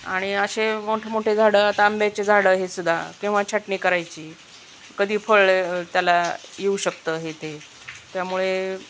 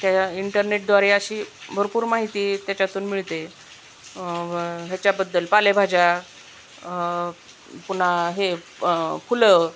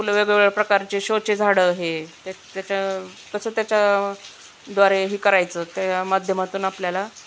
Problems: none marked